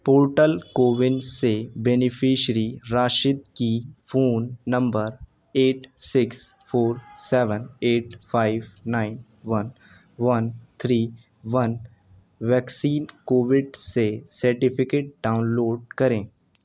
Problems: background conversations at intervals